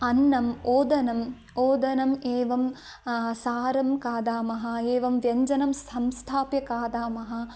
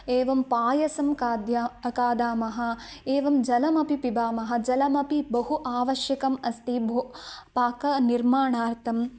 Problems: none marked